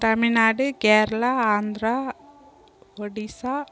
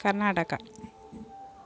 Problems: background sounds at intervals